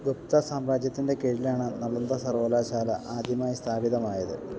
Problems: none marked